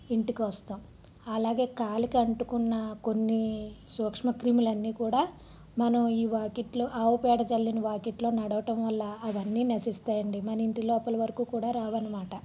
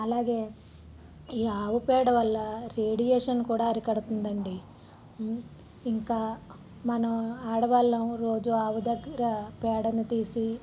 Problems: low volume